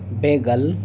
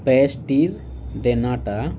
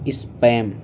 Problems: constant background noise